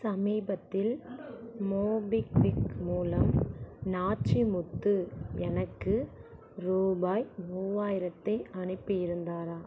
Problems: constant background noise, low volume